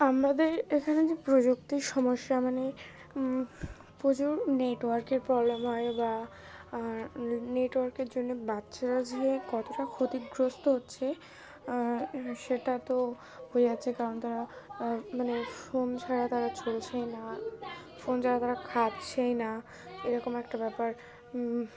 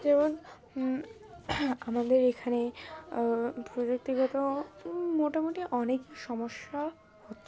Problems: constant background noise, continuous background conversations